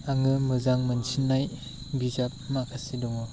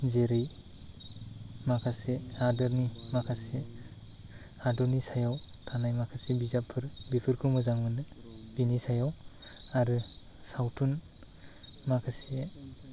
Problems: constant background noise